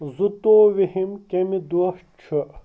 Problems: none marked